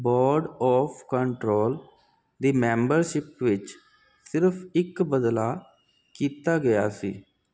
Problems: constant background noise